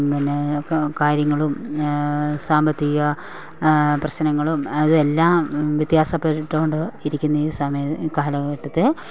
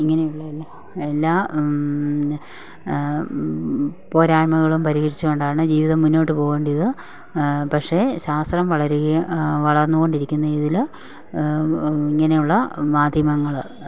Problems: none marked